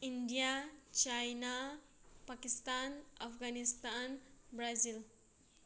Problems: none marked